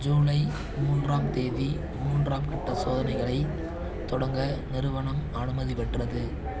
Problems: none marked